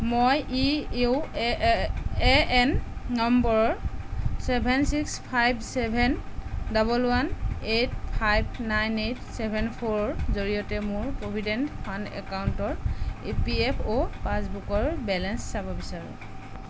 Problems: none marked